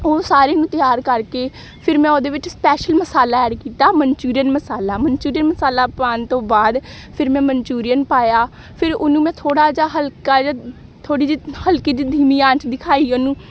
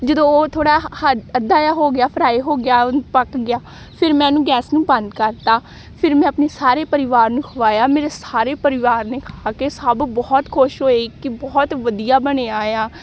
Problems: none marked